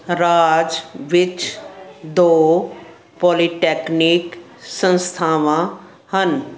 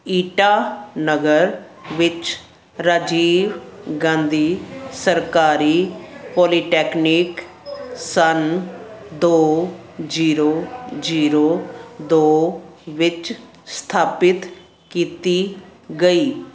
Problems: none marked